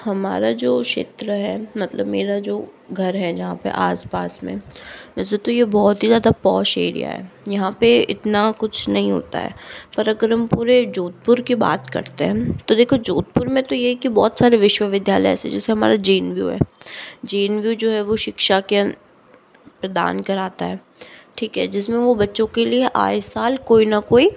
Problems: background sounds at intervals